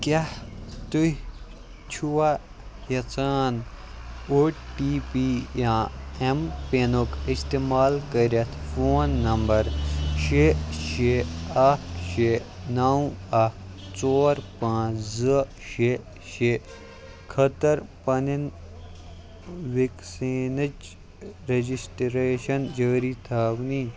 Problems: background sounds at intervals, low volume